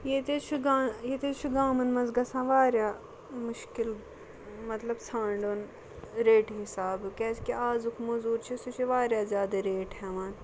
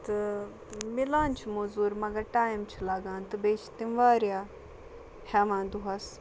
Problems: constant background noise